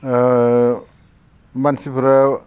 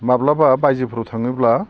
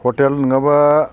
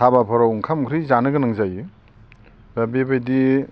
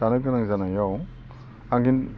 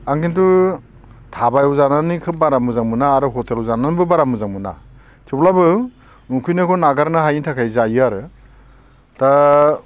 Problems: none marked